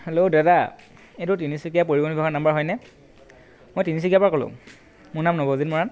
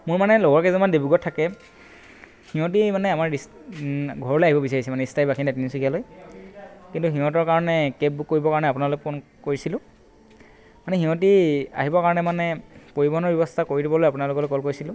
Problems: constant background noise